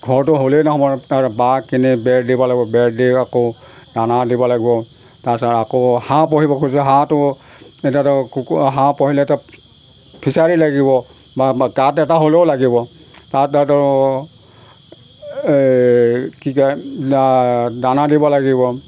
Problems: background sounds at intervals